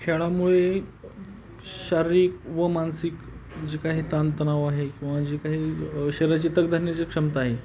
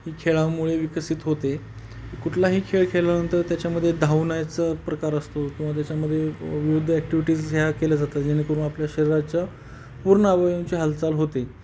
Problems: constant background noise